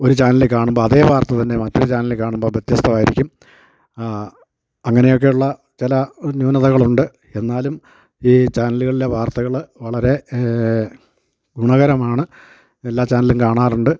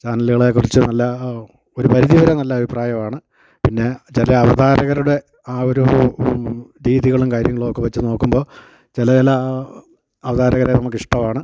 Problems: none marked